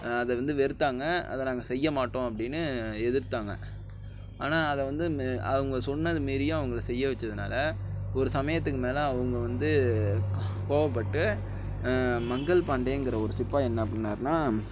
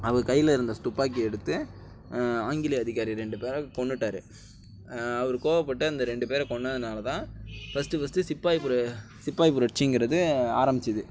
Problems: constant background noise